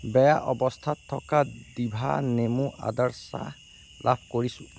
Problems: constant background noise